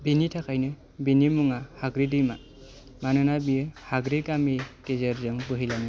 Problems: none marked